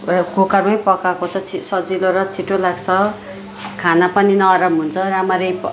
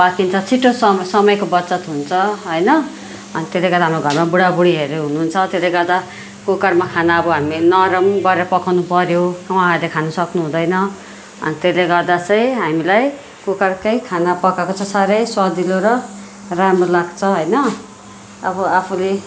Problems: continuous background conversations